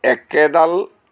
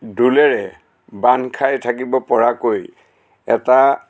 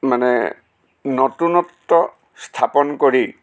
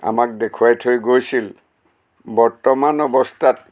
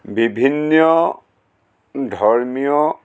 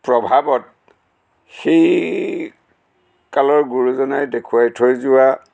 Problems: constant background noise